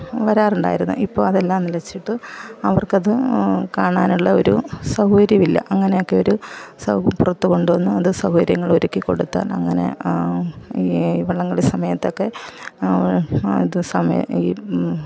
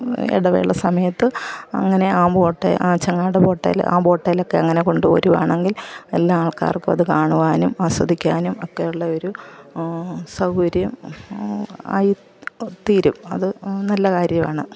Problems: background sounds at intervals, background conversations at intervals